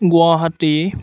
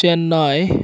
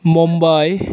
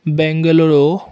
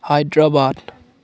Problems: background conversations at intervals